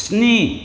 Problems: constant background noise